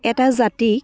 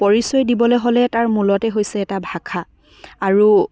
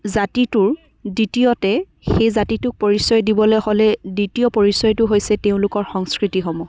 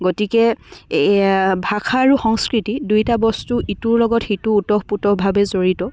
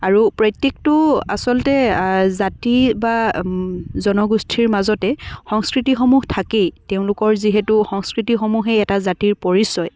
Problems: background sounds at intervals, background conversations at intervals